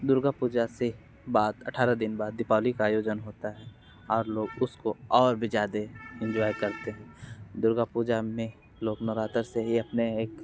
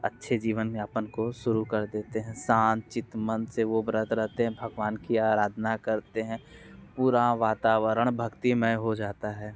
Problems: background sounds at intervals